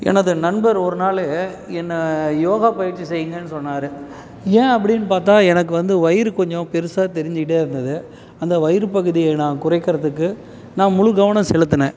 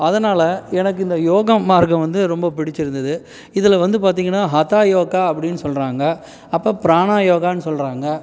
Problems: background sounds at intervals